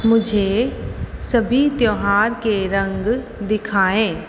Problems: echo